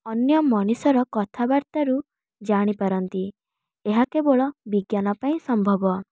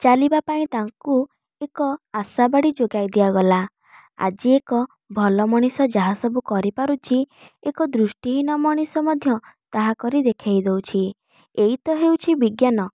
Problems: none marked